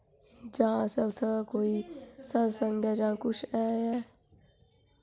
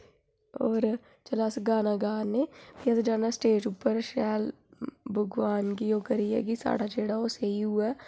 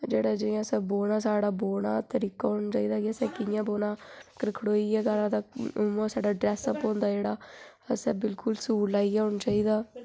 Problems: constant background noise